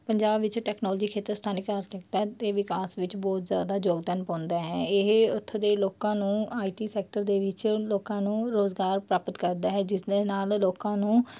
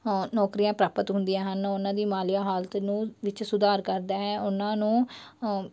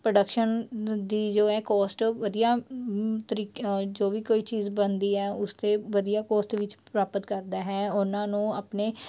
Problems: background sounds at intervals